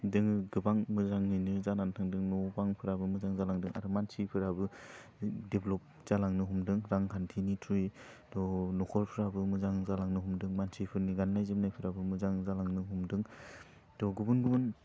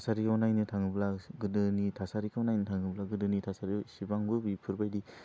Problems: constant background noise